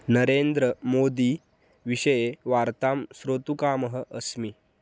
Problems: none marked